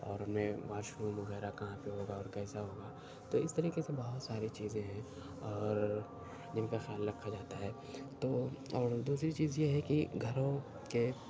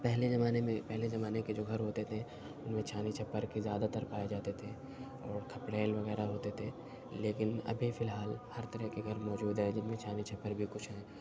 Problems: constant background noise, low volume